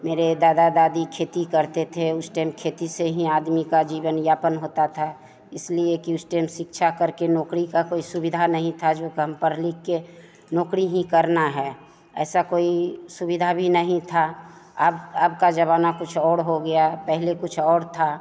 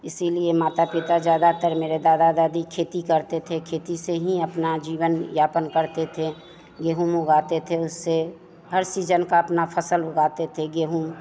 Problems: constant background noise, continuous background conversations